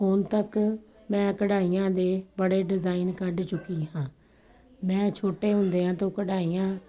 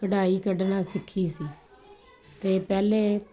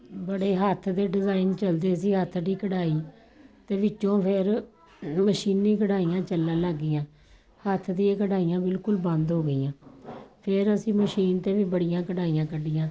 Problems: none marked